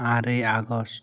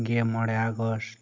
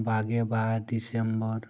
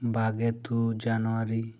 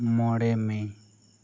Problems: none marked